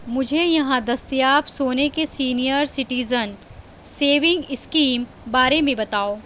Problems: constant background noise